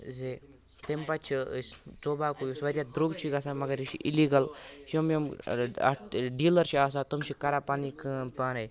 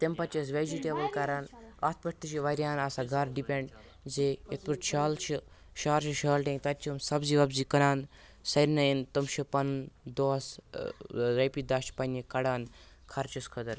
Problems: constant background noise, continuous background conversations